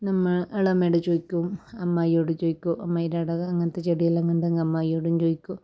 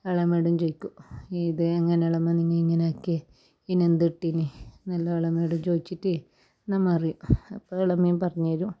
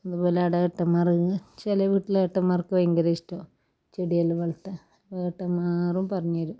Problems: none marked